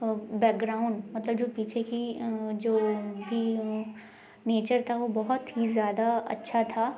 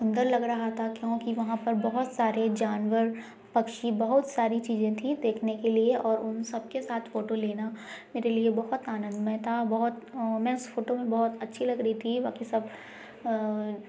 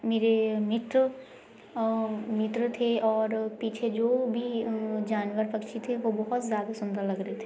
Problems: none marked